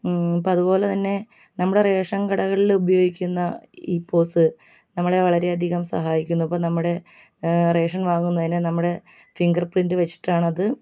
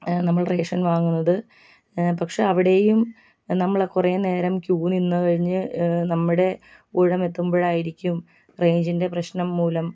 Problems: low volume